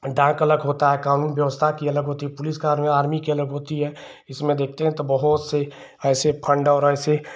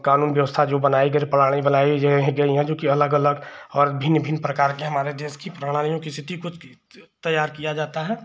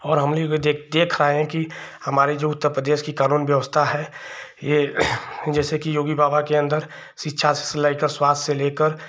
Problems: constant background noise